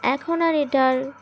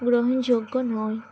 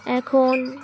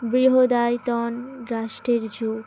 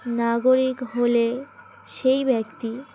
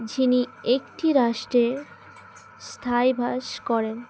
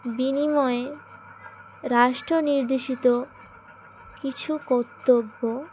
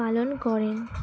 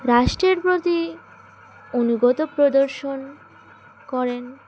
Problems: constant background noise, background conversations at intervals